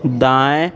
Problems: background conversations at intervals